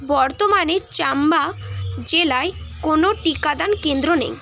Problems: constant background noise